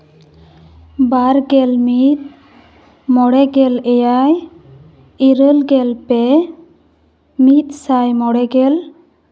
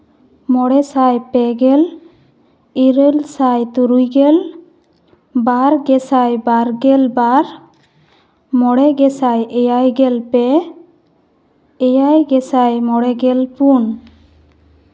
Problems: background conversations at intervals